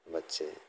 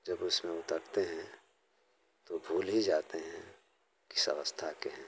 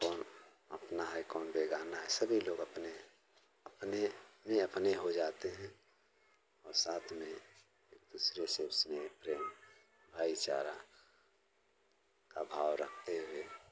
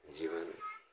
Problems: none marked